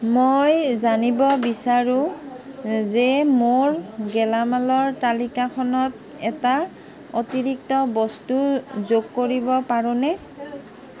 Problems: constant background noise